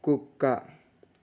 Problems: none marked